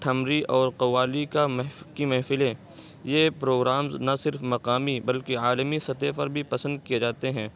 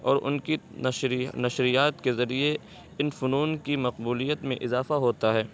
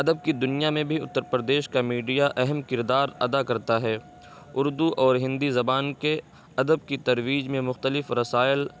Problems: constant background noise